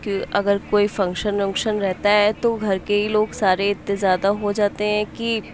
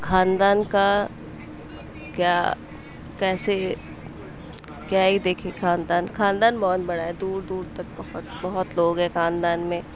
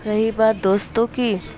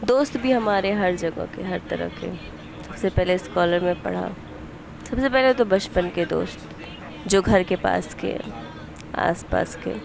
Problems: background sounds at intervals